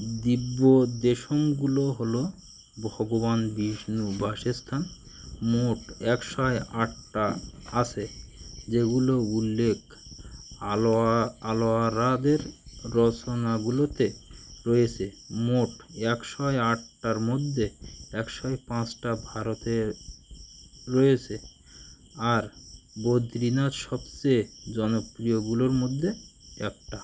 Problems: continuous background conversations